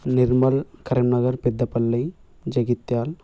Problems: background conversations at intervals